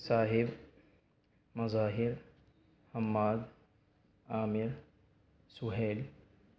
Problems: none marked